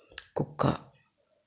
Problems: constant background noise